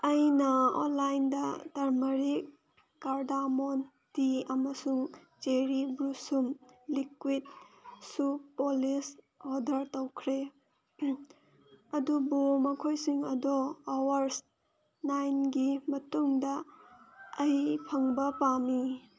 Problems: background sounds at intervals